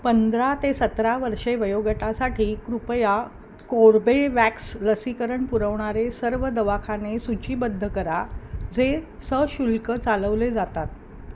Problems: constant background noise